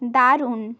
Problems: constant background noise